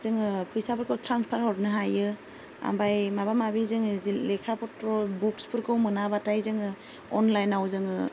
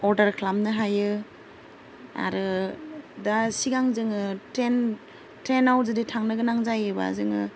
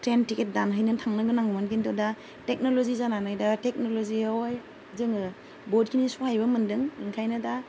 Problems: low volume